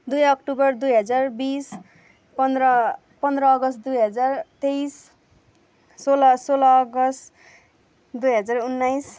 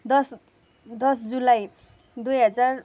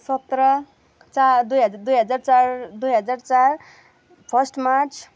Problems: constant background noise